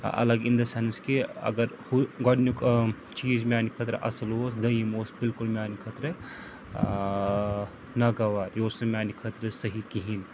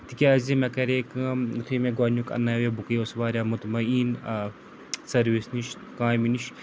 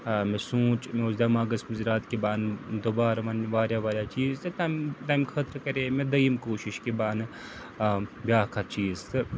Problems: constant background noise